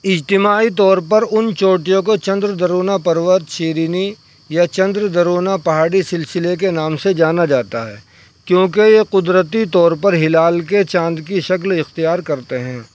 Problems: constant background noise